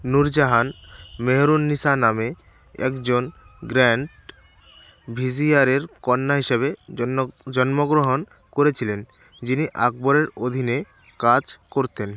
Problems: constant background noise